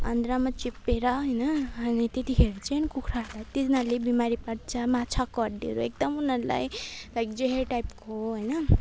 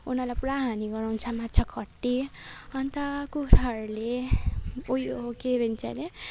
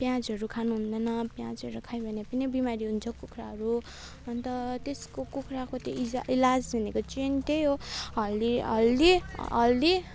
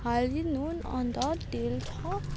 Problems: none marked